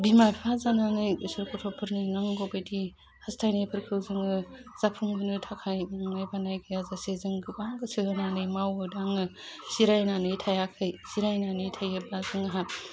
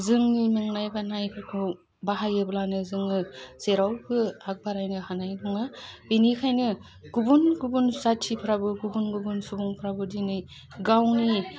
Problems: constant background noise